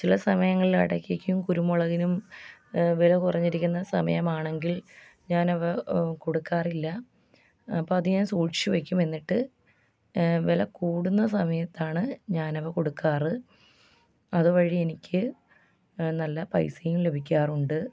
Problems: none marked